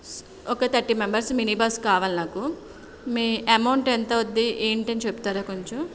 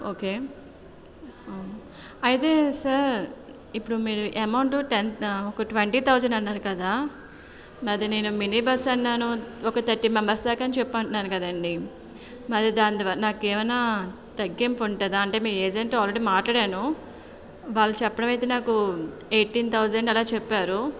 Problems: background conversations at intervals